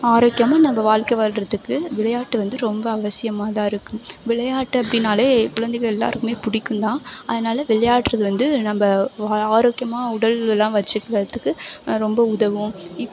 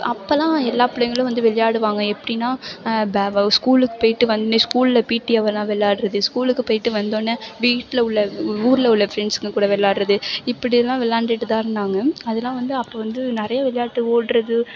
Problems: background sounds at intervals